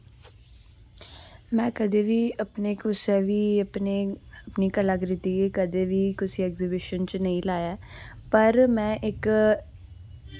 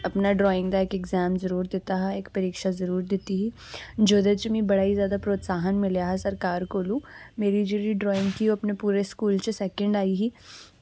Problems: constant background noise